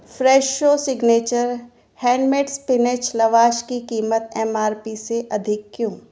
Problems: none marked